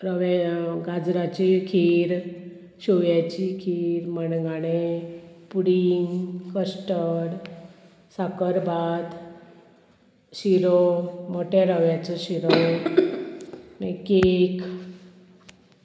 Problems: constant background noise